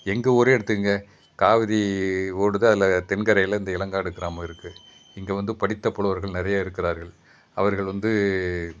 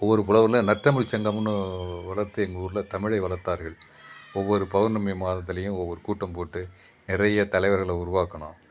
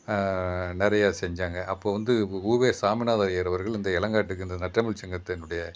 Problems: background sounds at intervals